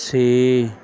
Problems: none marked